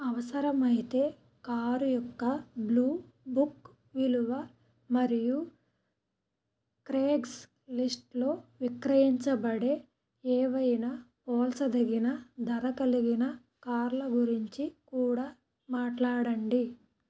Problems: none marked